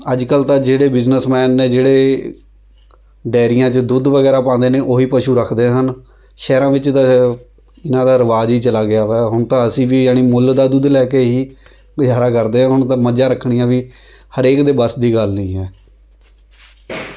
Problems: continuous background conversations